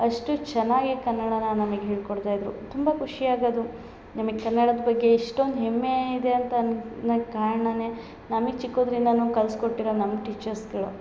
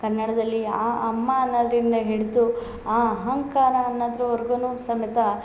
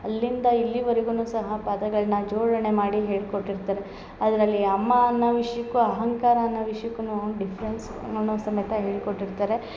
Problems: none marked